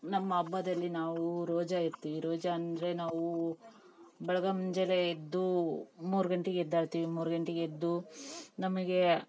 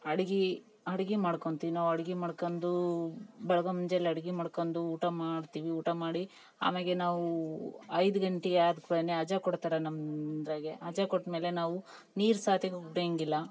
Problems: background sounds at intervals